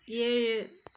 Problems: none marked